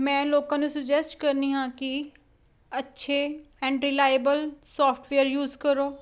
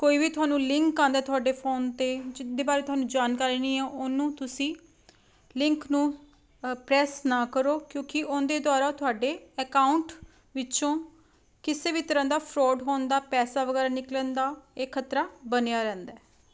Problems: constant background noise